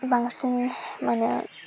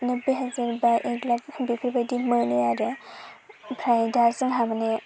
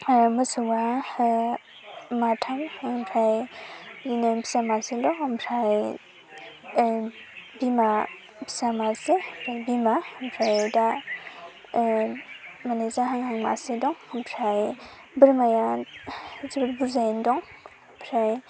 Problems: constant background noise